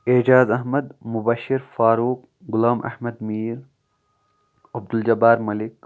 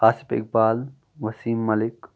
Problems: none marked